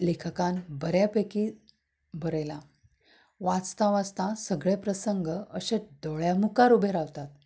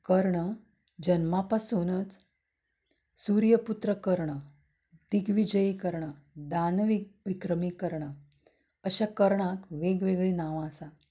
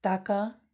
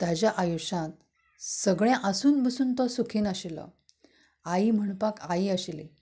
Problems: background sounds at intervals